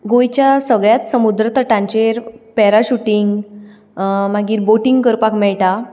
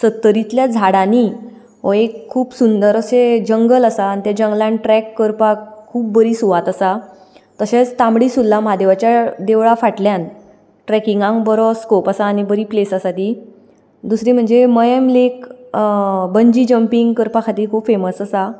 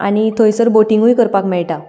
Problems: background sounds at intervals